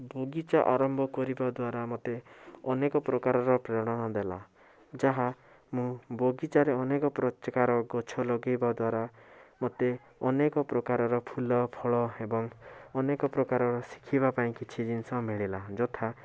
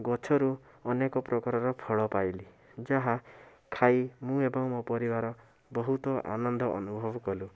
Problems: constant background noise